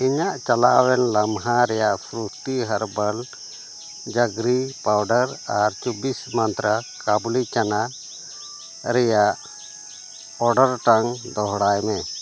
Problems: constant background noise